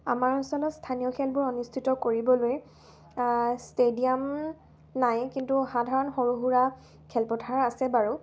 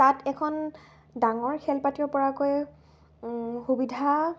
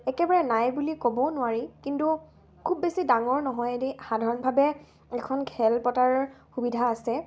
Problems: constant background noise